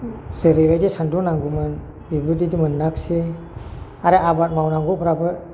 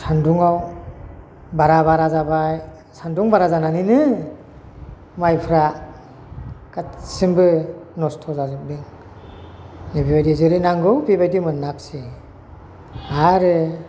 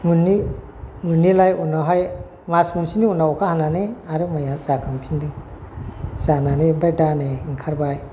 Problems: constant background noise